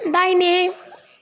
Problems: constant background noise